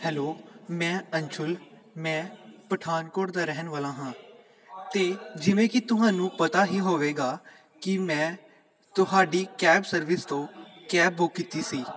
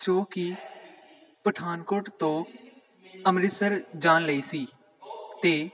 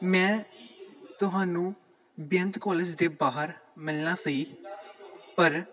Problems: continuous background conversations